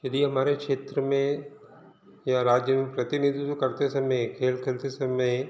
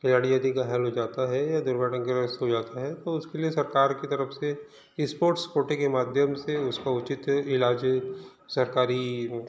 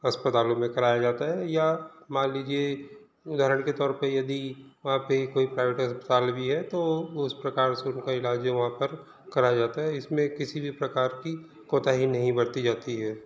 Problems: background sounds at intervals, background conversations at intervals